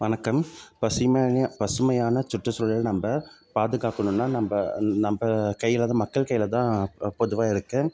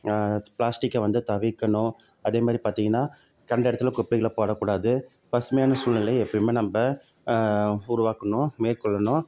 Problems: background sounds at intervals